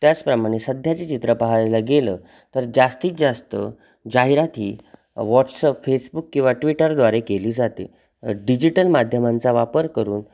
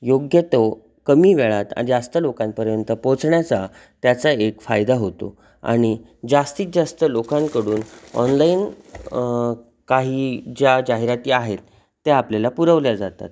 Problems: constant background noise, background conversations at intervals